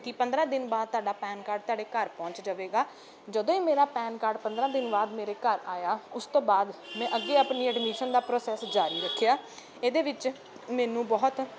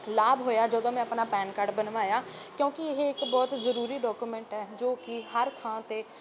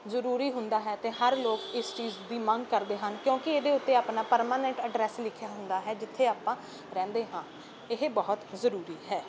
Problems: none marked